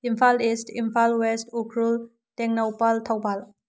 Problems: low volume